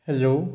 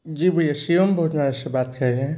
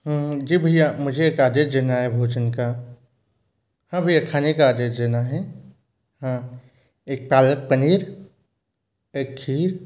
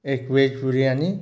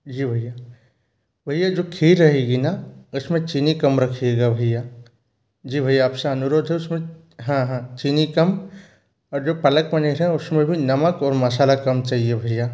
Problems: none marked